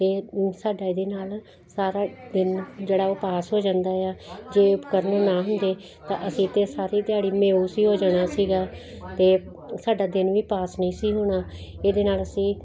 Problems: constant background noise